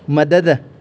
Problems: constant background noise, echo